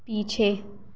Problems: constant background noise, echo